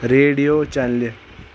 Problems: constant background noise